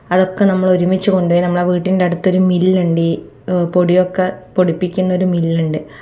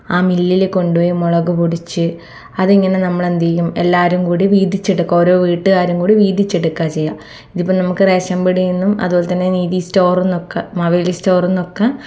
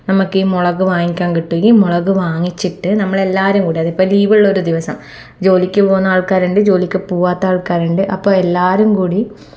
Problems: none marked